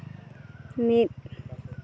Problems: constant background noise